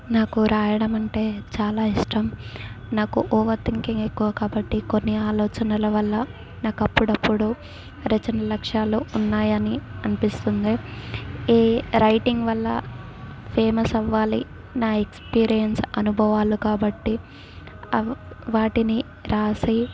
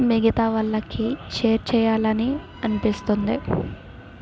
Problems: none marked